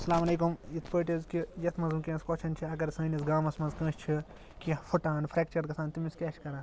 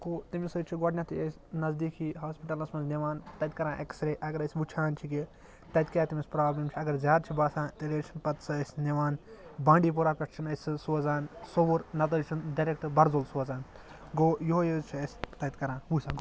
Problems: constant background noise